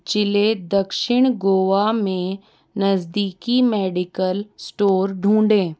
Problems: none marked